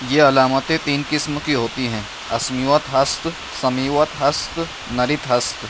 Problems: constant background noise